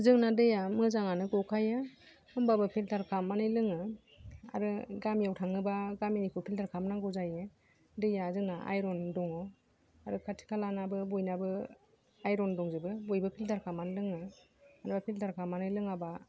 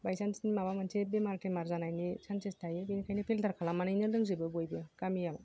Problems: low volume